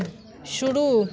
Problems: constant background noise, continuous background conversations